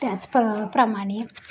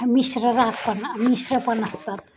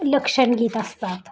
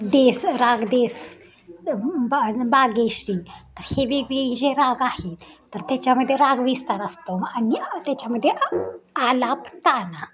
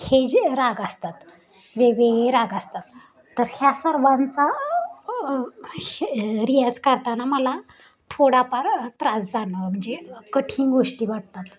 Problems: constant background noise